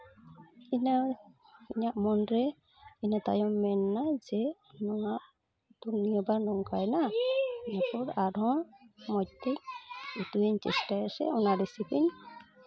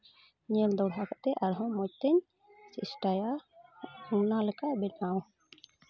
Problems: constant background noise, continuous background conversations